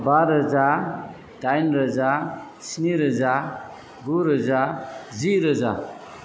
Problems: background sounds at intervals